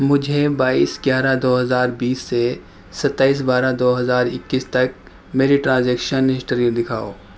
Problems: background sounds at intervals